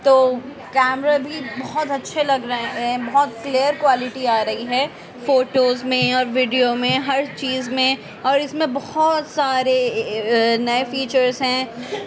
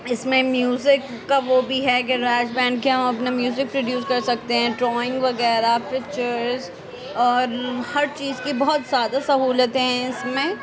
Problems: constant background noise